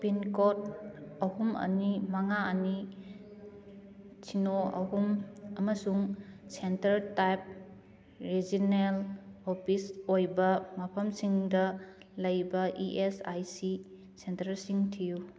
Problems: none marked